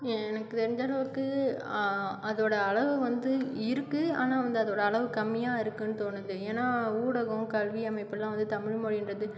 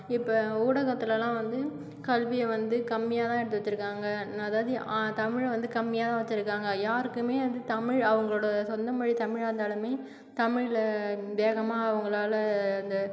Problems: none marked